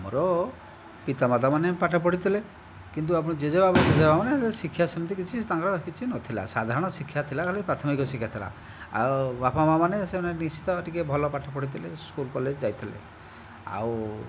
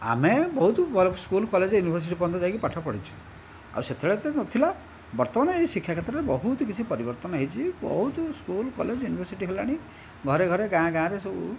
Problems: background sounds at intervals